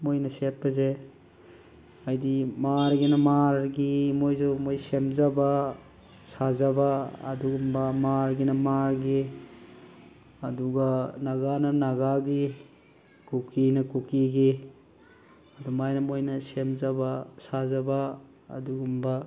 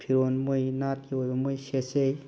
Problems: constant background noise